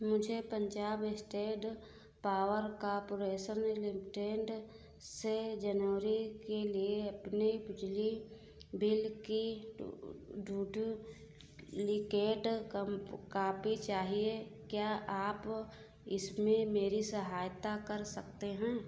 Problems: none marked